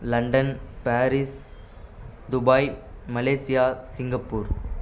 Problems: constant background noise